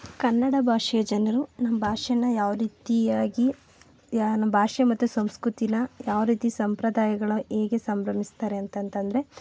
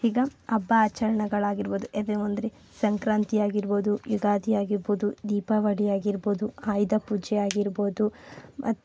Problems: none marked